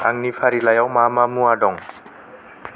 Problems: none marked